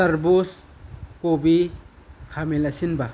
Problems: constant background noise